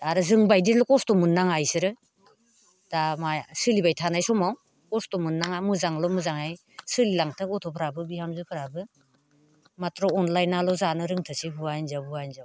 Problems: constant background noise